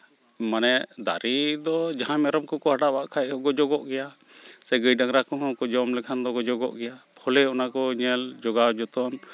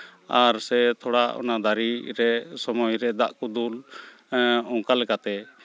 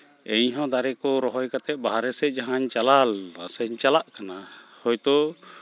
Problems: none marked